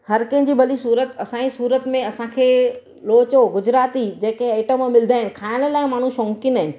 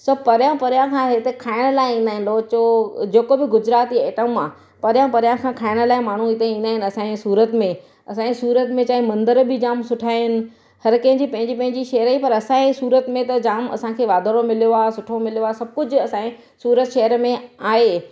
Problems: none marked